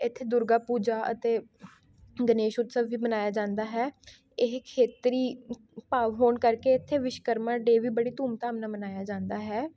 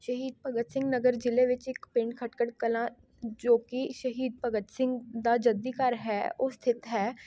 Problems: none marked